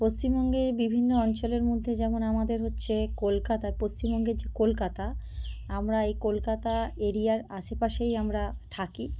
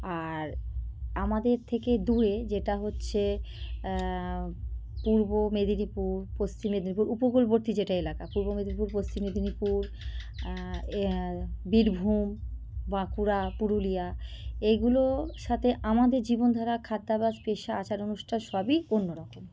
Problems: none marked